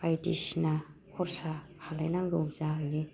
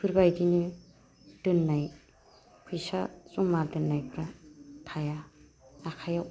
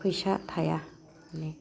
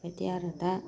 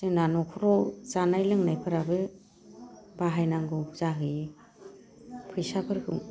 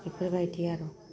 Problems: low volume